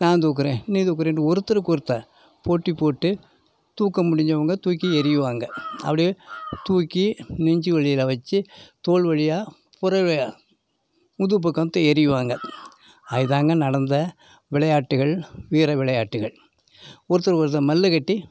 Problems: background sounds at intervals